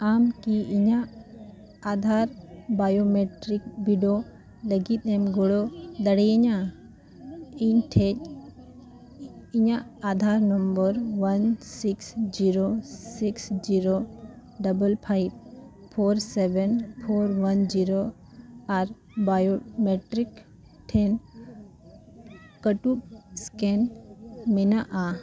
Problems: background conversations at intervals